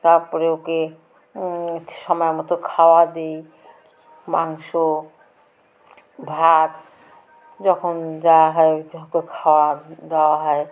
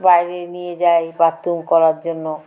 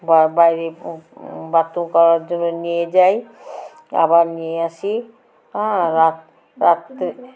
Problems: constant background noise